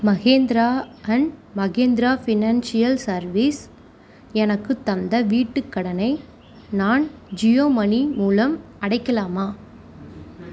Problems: constant background noise